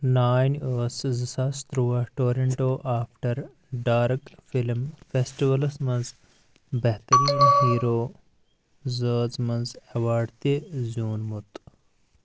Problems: none marked